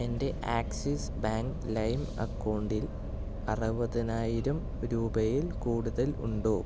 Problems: low volume